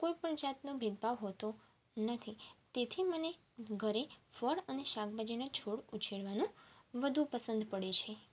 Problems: constant background noise